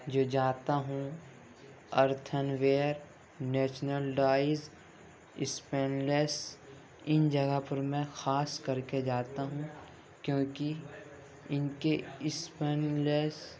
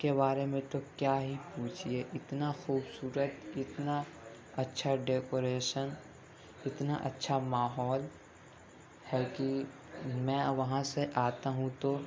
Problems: constant background noise, continuous background conversations